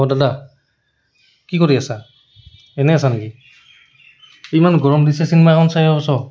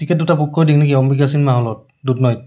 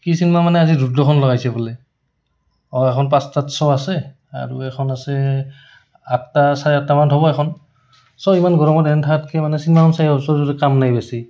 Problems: background sounds at intervals